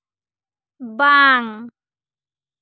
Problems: none marked